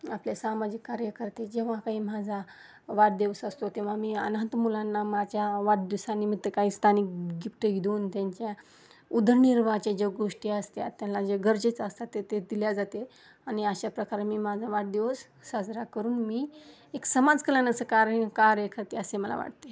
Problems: background sounds at intervals